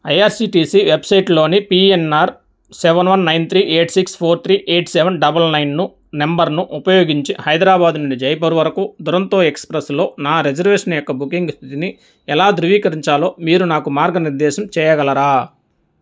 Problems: none marked